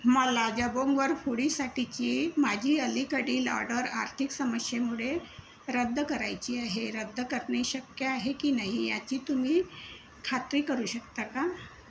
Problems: constant background noise